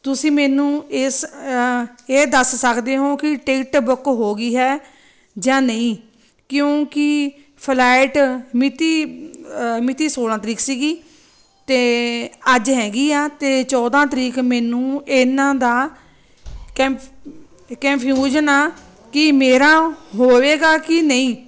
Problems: constant background noise